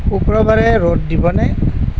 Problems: constant background noise